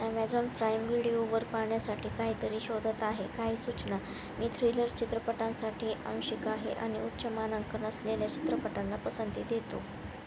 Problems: constant background noise